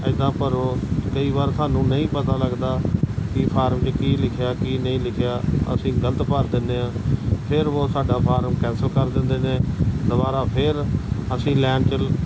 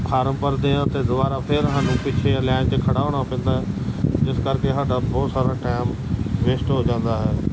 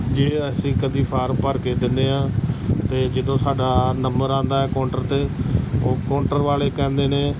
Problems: constant background noise